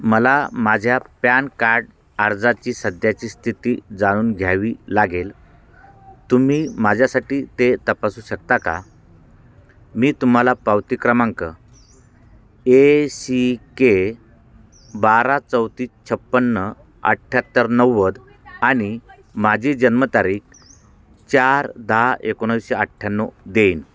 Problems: constant background noise, background conversations at intervals